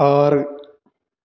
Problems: none marked